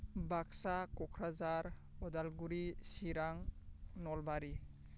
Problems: constant background noise